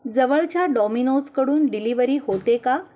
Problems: none marked